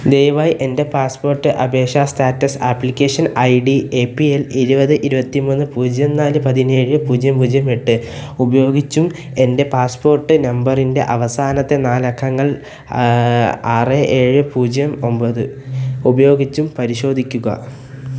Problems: constant background noise